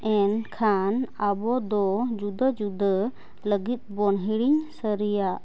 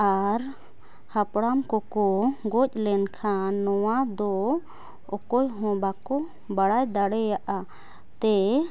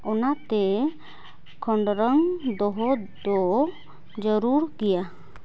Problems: background sounds at intervals